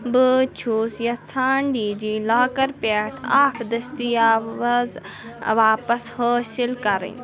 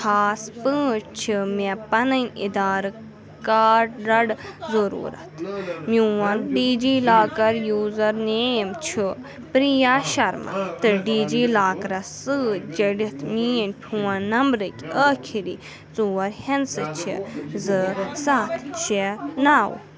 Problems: constant background noise